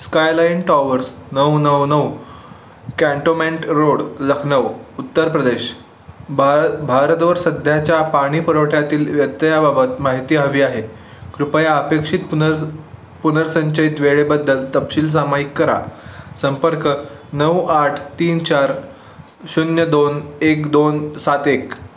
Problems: none marked